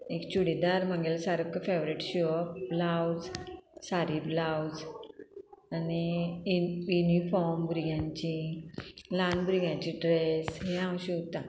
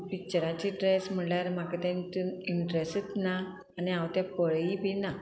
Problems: constant background noise